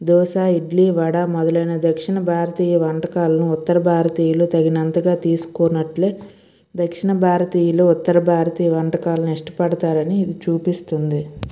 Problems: background sounds at intervals